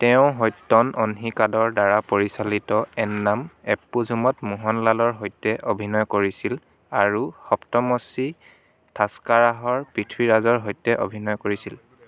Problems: background sounds at intervals, background conversations at intervals